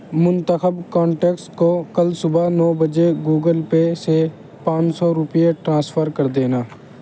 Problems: constant background noise